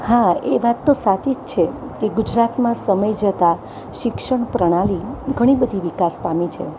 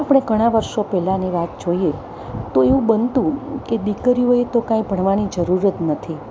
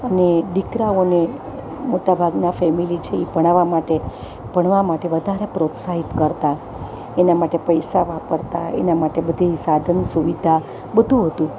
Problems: none marked